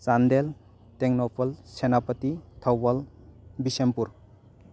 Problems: constant background noise